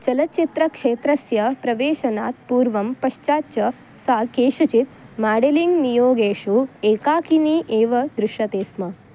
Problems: none marked